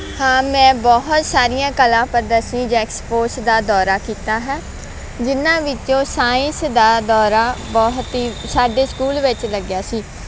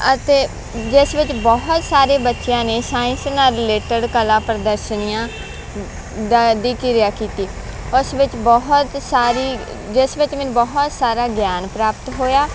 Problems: constant background noise